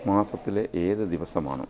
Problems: background conversations at intervals, low volume